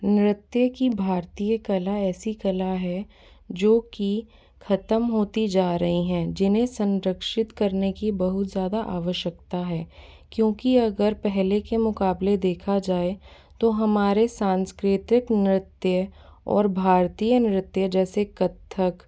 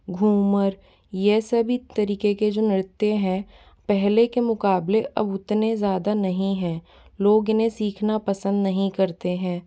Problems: background sounds at intervals